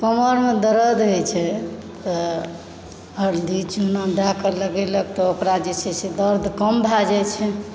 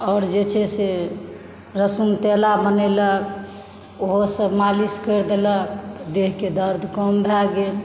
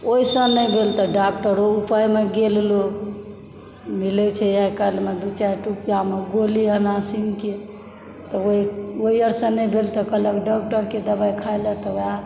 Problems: background sounds at intervals